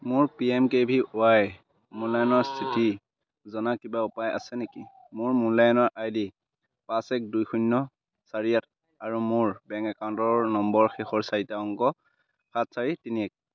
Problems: constant background noise